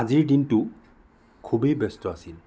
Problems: constant background noise